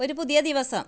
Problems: none marked